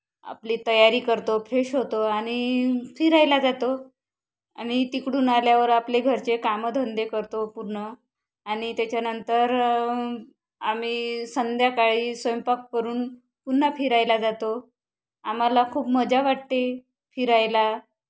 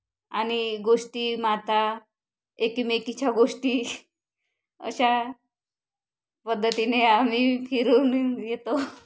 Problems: constant background noise